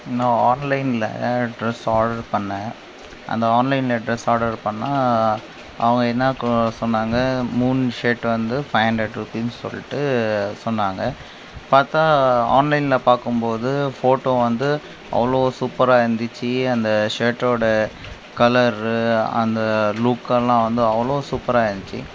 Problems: constant background noise